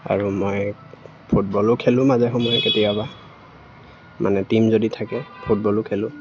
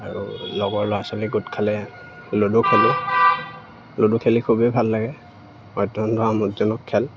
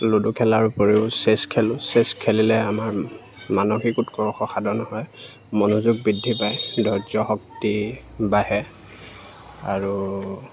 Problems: none marked